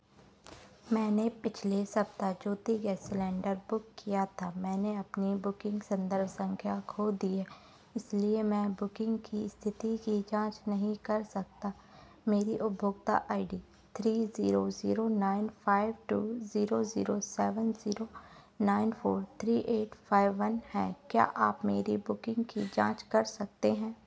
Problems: none marked